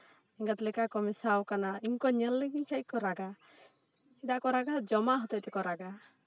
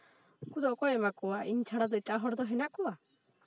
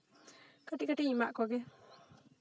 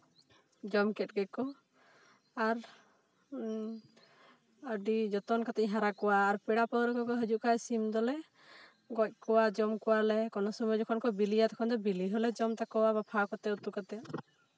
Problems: background conversations at intervals